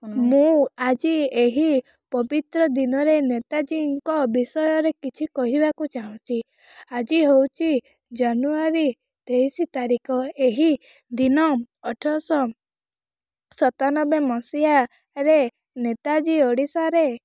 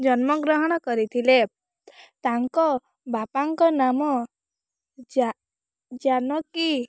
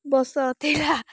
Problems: background sounds at intervals